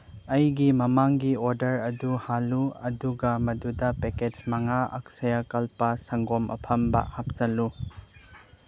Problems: background sounds at intervals